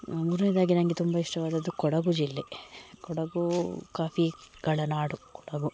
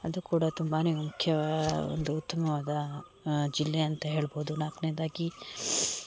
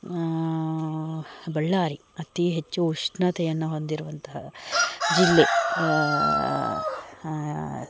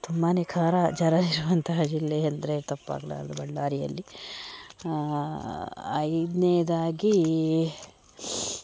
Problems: background sounds at intervals